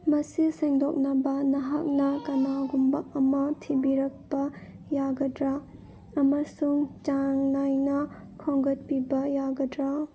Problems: none marked